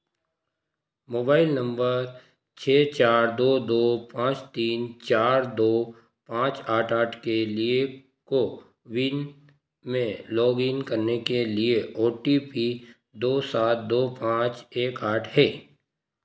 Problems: constant background noise